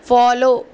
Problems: none marked